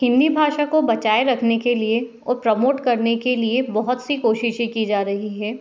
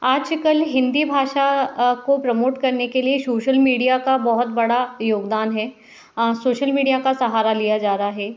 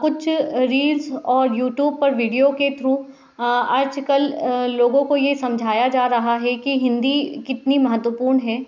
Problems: none marked